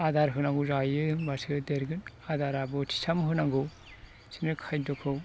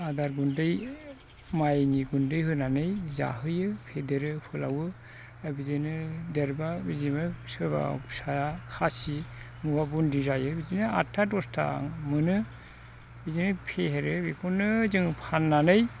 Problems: constant background noise